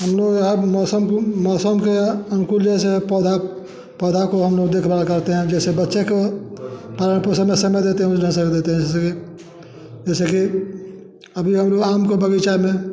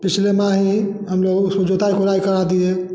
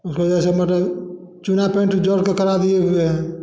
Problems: none marked